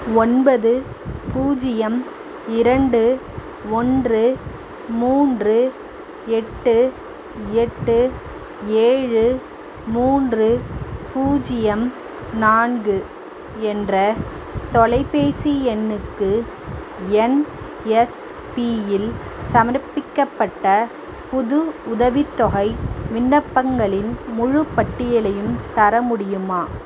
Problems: constant background noise